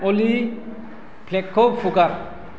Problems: constant background noise